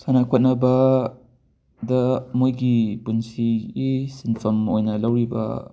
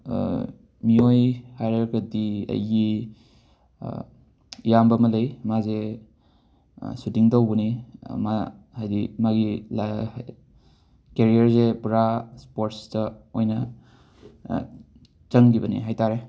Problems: none marked